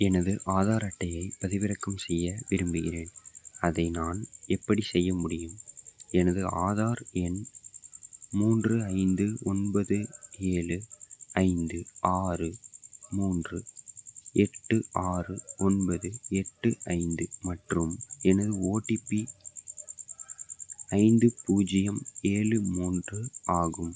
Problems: background sounds at intervals